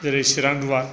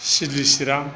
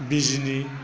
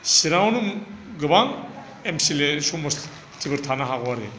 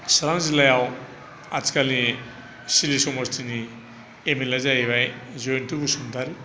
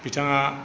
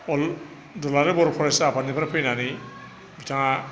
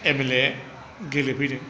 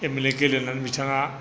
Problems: none marked